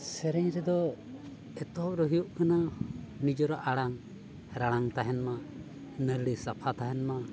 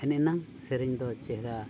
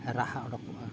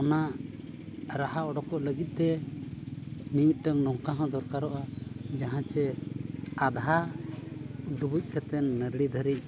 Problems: constant background noise, background conversations at intervals